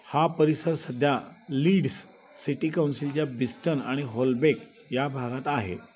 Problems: constant background noise, continuous background conversations